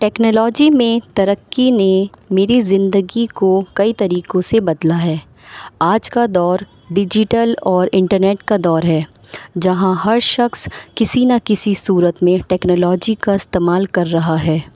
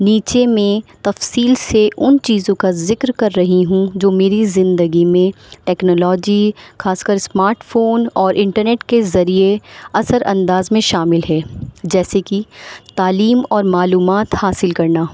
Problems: constant background noise